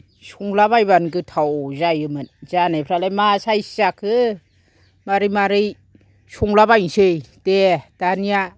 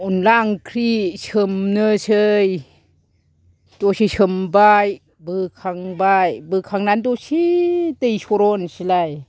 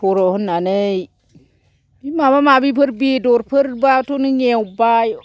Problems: low volume